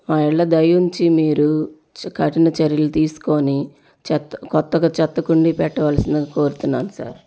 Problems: none marked